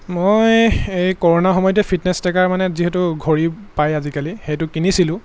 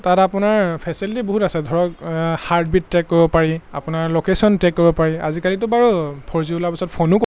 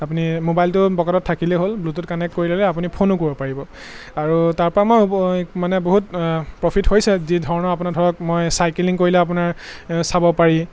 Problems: constant background noise